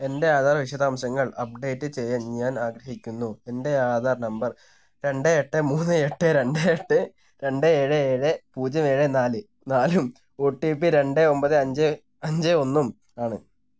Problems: none marked